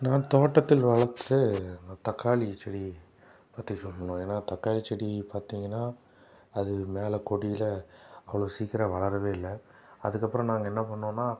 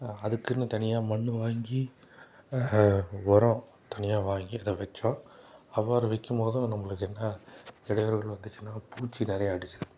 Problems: none marked